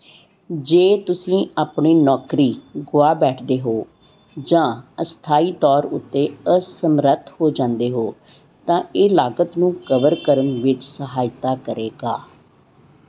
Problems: none marked